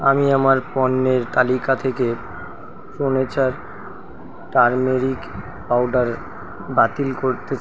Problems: constant background noise